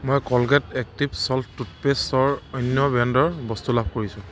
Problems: constant background noise